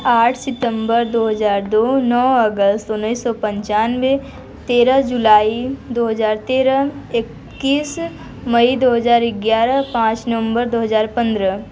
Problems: constant background noise